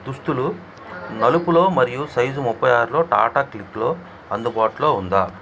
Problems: none marked